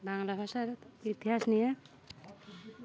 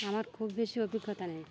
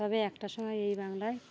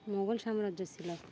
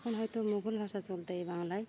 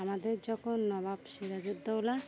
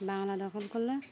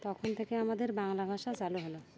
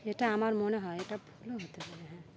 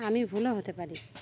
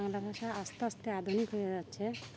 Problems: background sounds at intervals